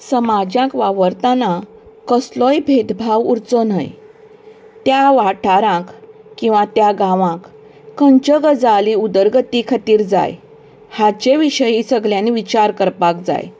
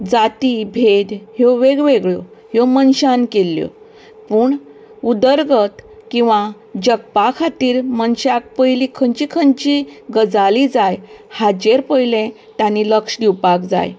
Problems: constant background noise